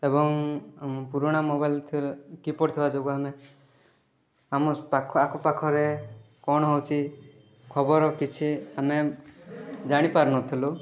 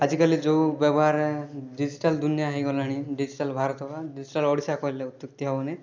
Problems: background conversations at intervals